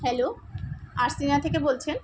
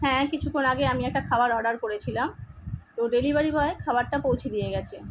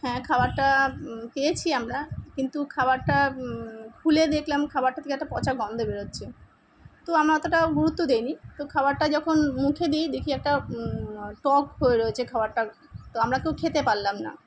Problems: none marked